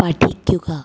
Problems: echo